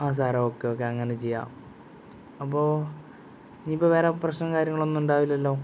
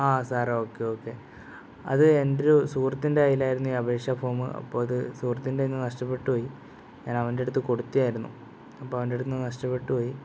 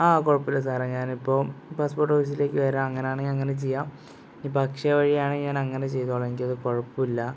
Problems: background sounds at intervals